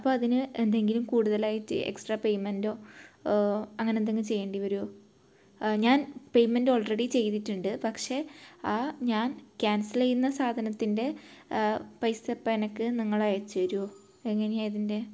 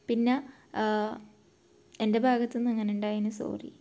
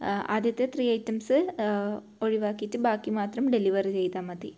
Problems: low volume